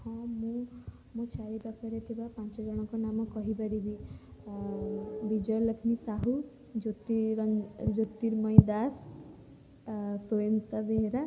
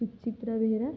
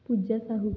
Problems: low volume